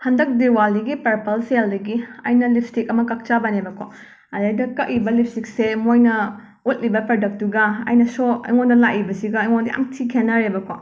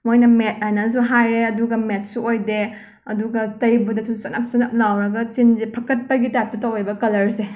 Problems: background sounds at intervals